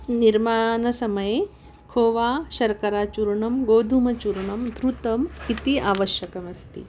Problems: background sounds at intervals